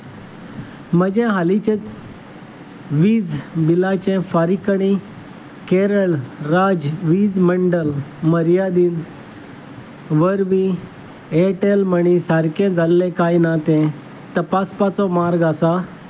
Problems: constant background noise